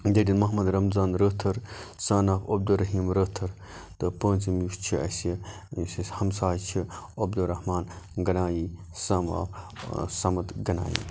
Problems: background sounds at intervals